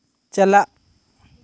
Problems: none marked